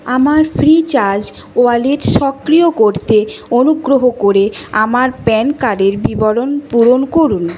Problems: constant background noise